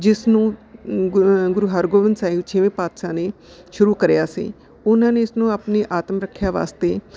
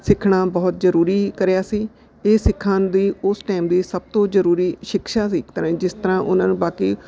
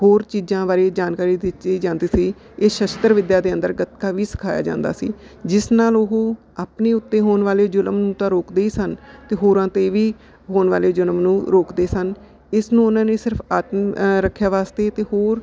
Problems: none marked